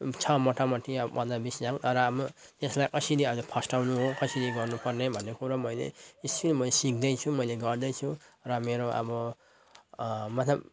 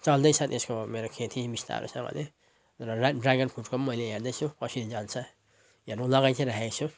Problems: none marked